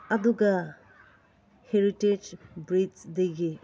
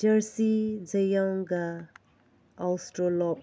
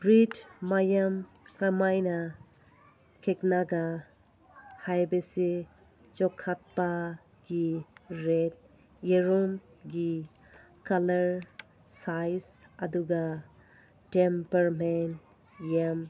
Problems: background sounds at intervals